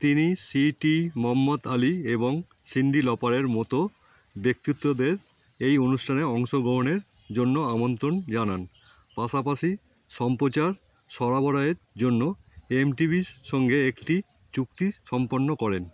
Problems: constant background noise